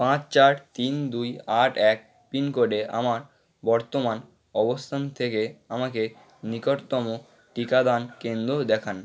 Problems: background sounds at intervals